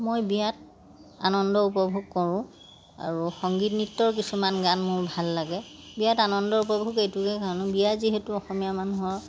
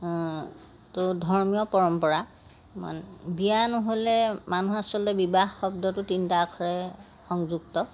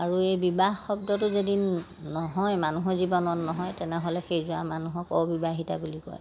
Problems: background sounds at intervals